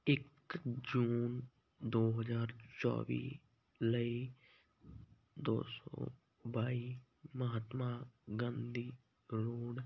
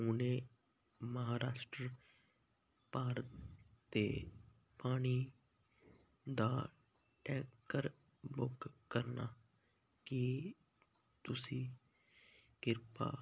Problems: none marked